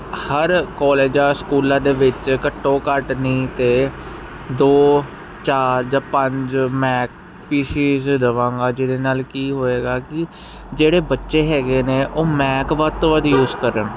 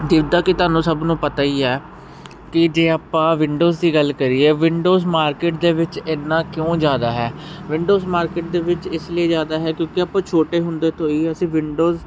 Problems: none marked